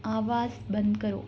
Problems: constant background noise